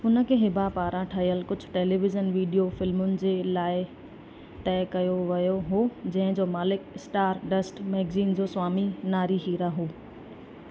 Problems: constant background noise